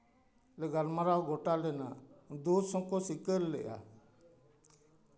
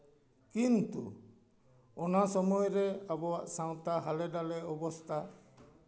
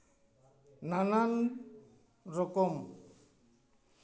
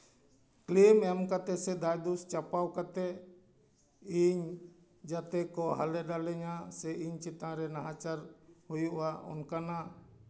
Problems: background sounds at intervals, continuous background conversations